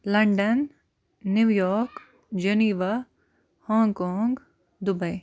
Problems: constant background noise